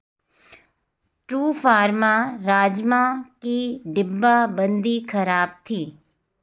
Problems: background sounds at intervals